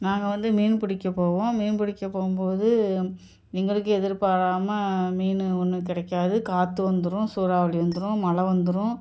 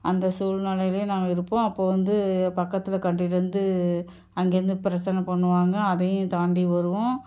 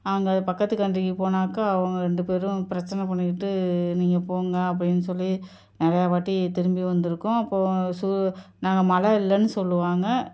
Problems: none marked